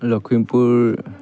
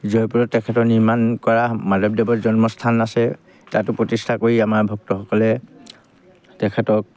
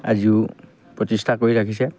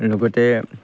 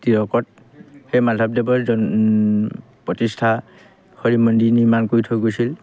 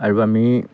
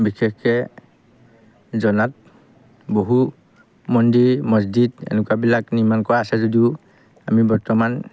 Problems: background sounds at intervals